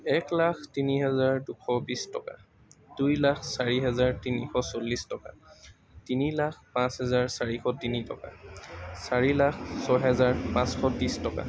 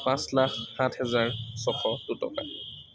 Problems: constant background noise, background conversations at intervals